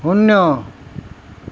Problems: none marked